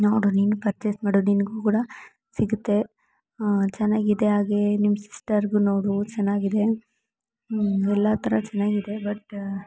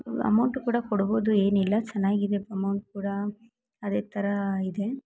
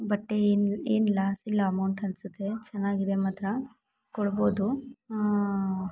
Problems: none marked